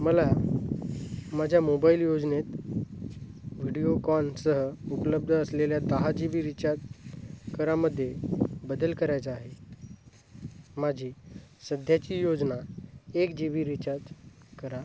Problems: constant background noise, low volume